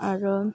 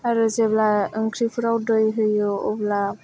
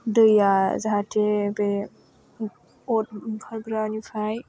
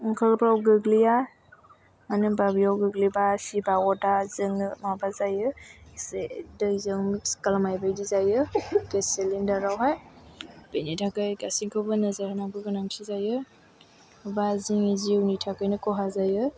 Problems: low volume